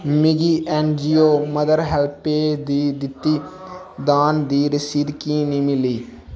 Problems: background sounds at intervals